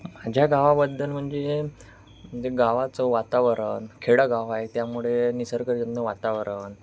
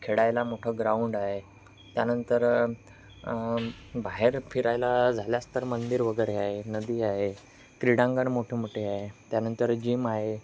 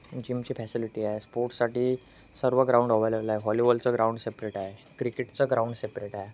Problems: none marked